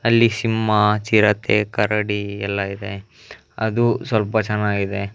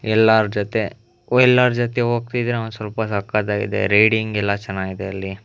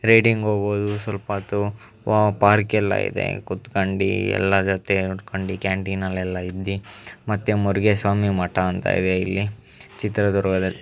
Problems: background sounds at intervals